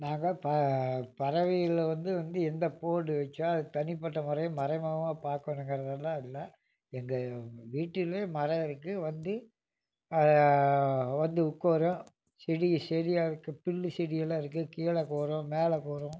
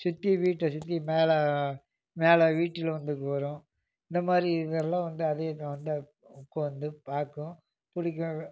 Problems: background sounds at intervals